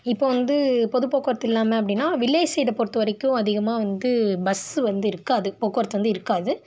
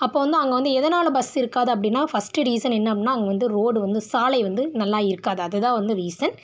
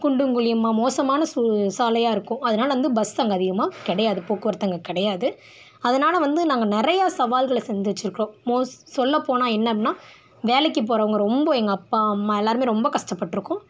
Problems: none marked